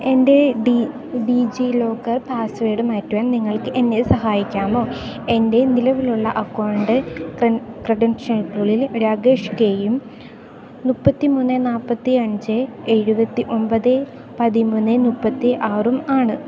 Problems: none marked